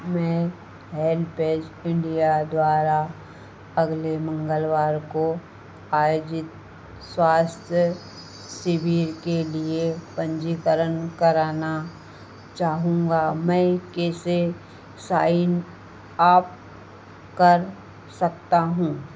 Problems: none marked